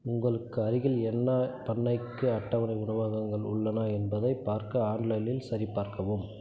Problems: low volume